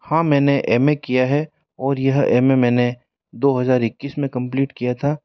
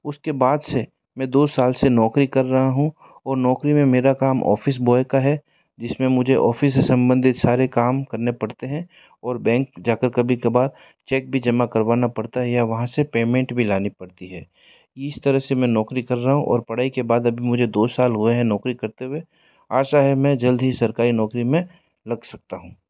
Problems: background sounds at intervals